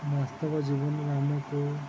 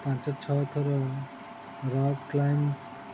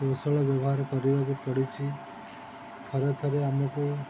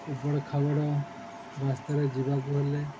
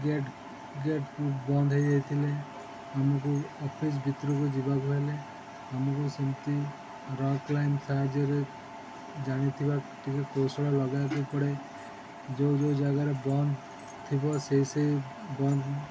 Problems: none marked